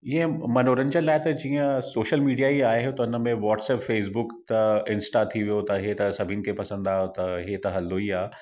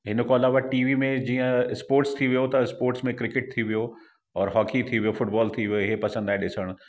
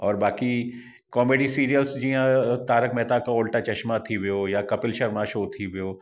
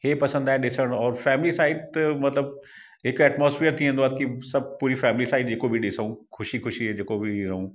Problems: echo